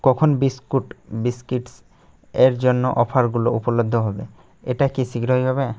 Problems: background sounds at intervals